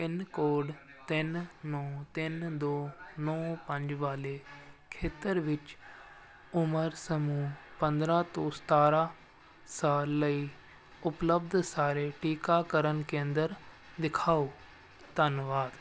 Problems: constant background noise